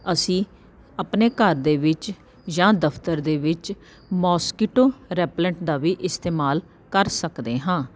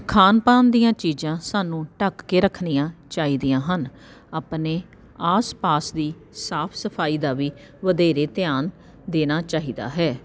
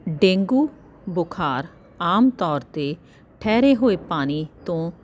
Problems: none marked